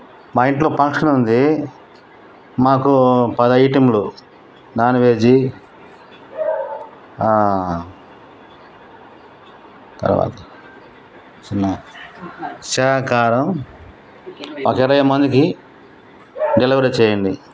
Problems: constant background noise